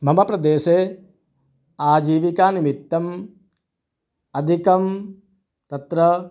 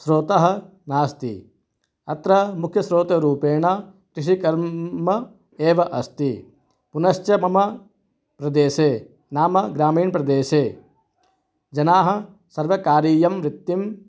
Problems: none marked